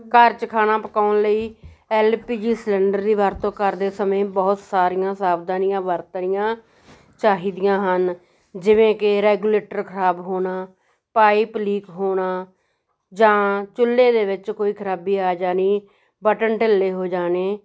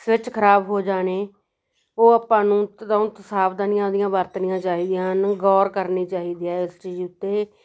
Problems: none marked